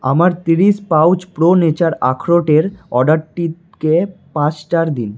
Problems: background sounds at intervals